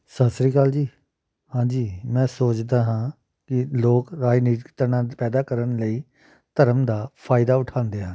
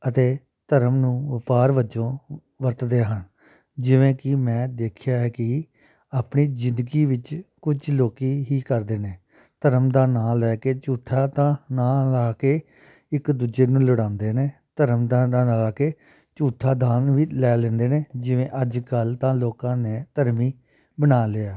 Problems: none marked